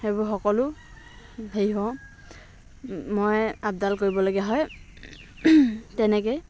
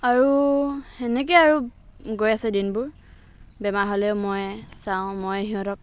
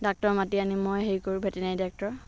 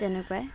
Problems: background sounds at intervals, background conversations at intervals